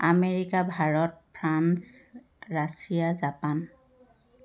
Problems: constant background noise